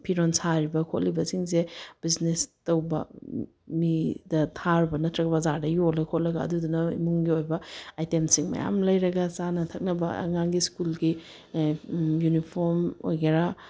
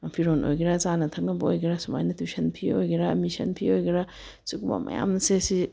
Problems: none marked